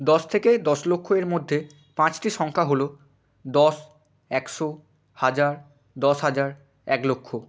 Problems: constant background noise